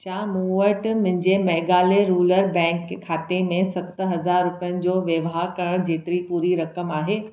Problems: none marked